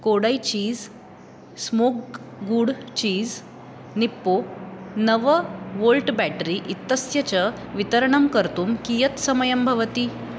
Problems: constant background noise